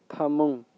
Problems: low volume